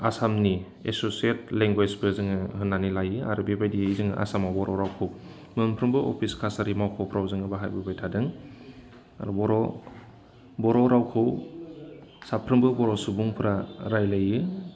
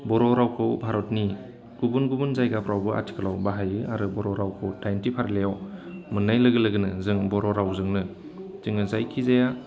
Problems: none marked